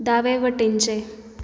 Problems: none marked